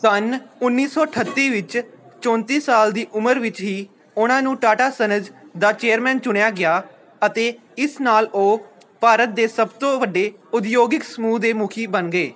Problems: background conversations at intervals